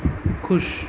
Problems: constant background noise